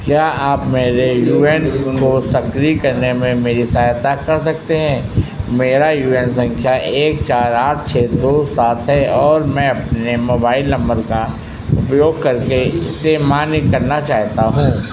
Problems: constant background noise